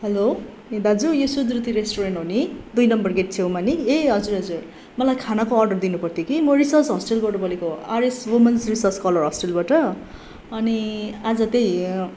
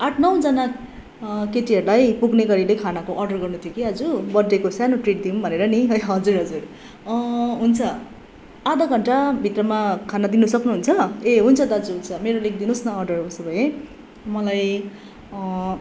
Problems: constant background noise